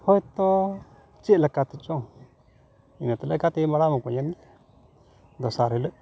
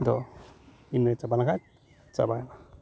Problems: background sounds at intervals